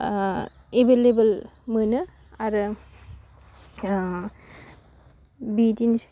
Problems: low volume